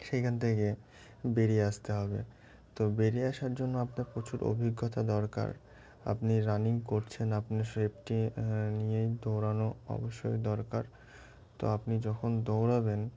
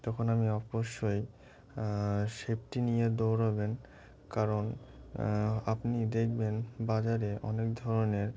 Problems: constant background noise, continuous background conversations